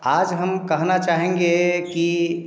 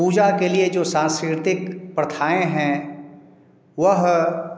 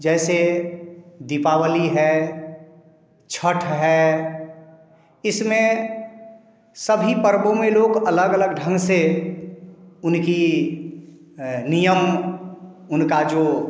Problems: none marked